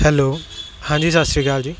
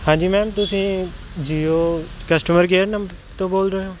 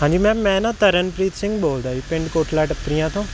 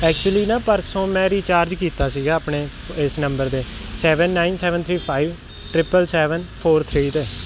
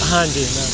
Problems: constant background noise